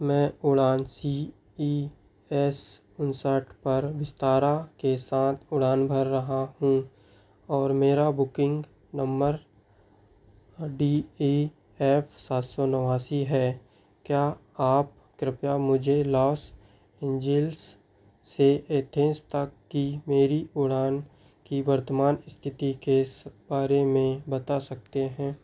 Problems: none marked